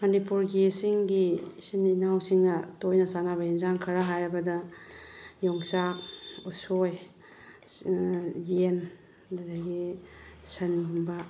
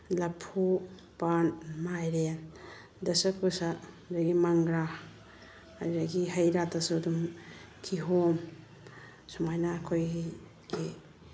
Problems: none marked